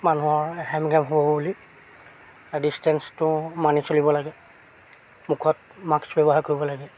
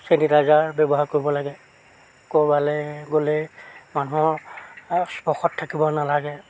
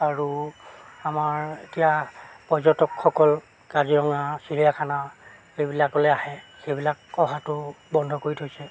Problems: constant background noise